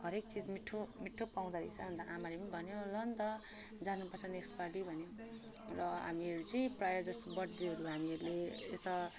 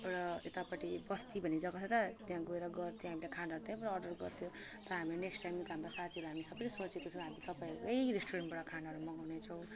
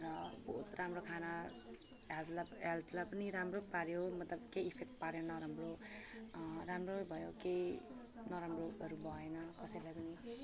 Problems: background sounds at intervals